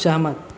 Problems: constant background noise